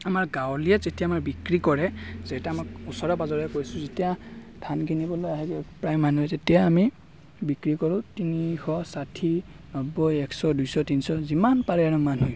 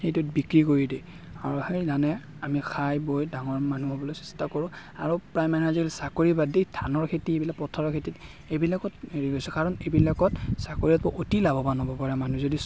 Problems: constant background noise, background conversations at intervals